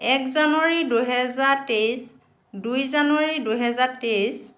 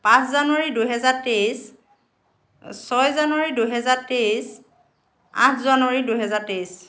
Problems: constant background noise